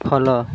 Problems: background sounds at intervals